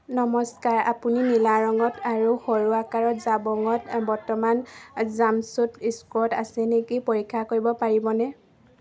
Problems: none marked